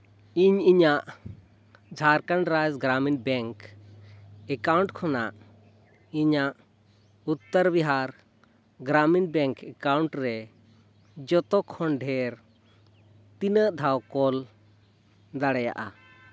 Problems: background sounds at intervals